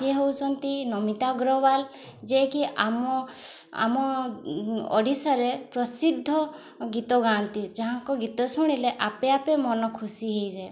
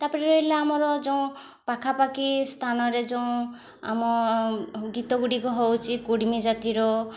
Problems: none marked